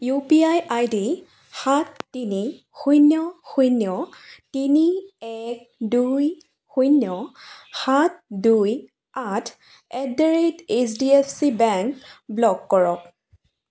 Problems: low volume